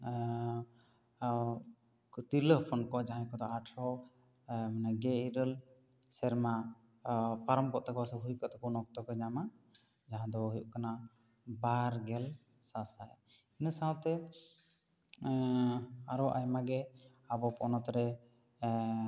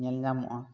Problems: none marked